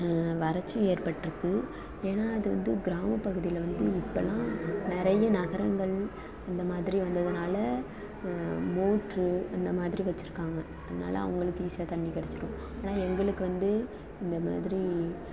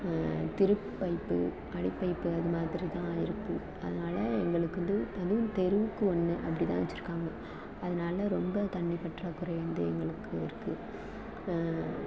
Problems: constant background noise, low volume